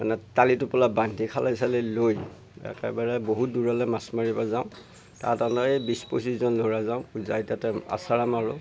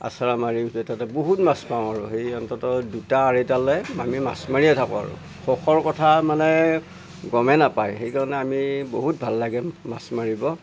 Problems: none marked